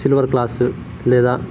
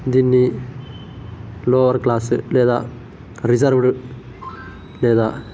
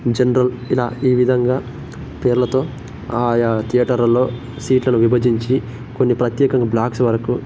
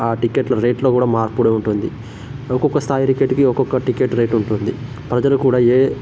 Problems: constant background noise